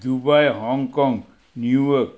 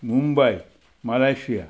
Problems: none marked